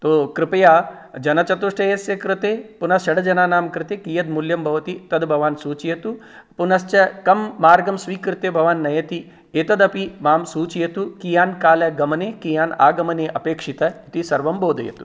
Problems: none marked